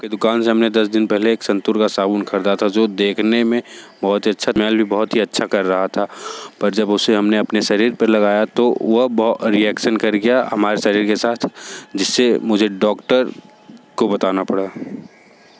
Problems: background sounds at intervals